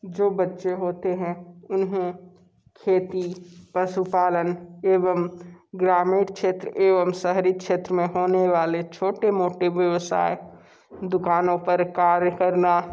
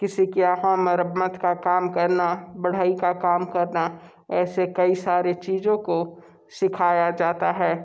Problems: background sounds at intervals